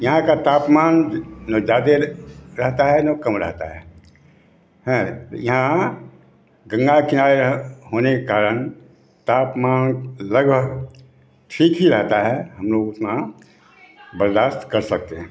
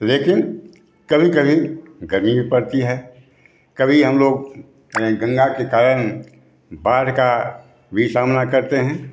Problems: background sounds at intervals, background conversations at intervals